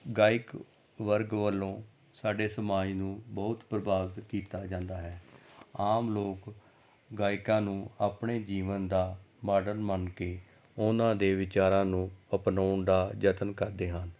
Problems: background sounds at intervals